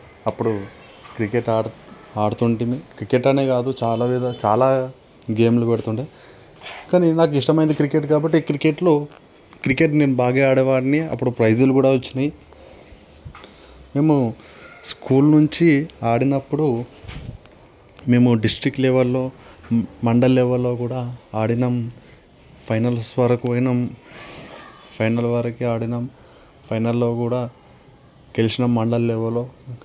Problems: constant background noise